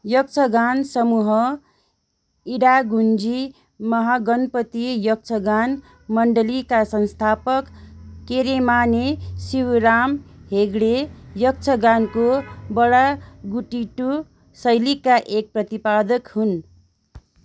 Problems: background sounds at intervals